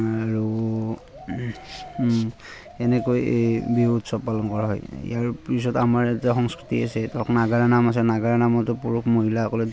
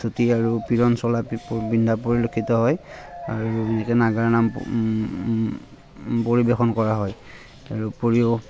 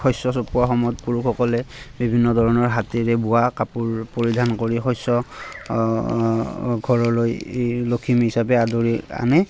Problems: constant background noise, background conversations at intervals